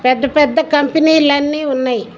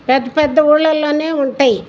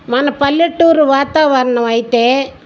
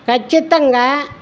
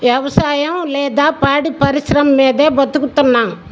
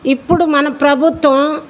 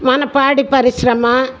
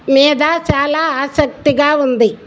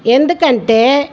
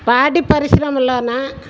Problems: background sounds at intervals